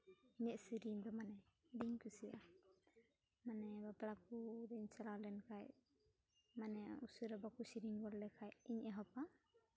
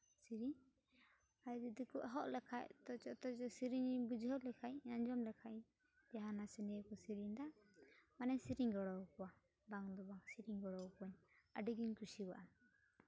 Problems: low volume